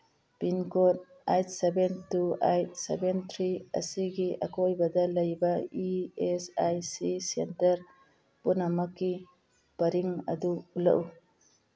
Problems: background sounds at intervals